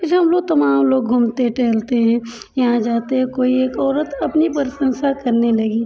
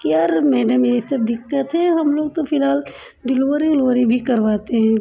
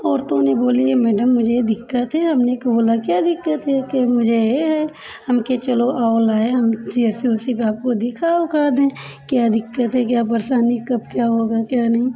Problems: none marked